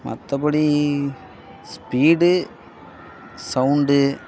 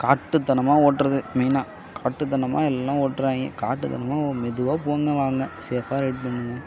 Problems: background sounds at intervals